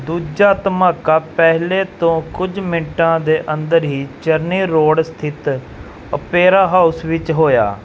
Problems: background sounds at intervals